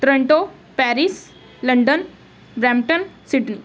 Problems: background sounds at intervals